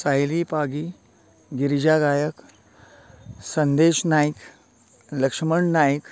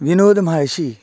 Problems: constant background noise